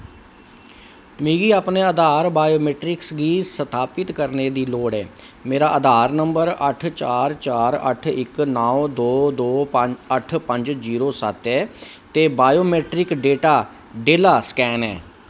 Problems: none marked